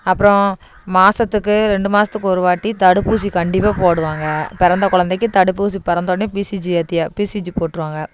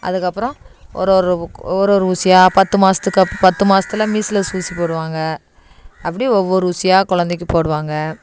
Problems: none marked